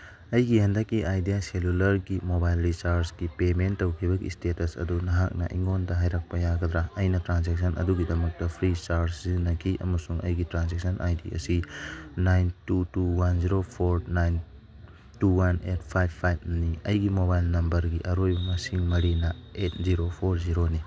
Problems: background sounds at intervals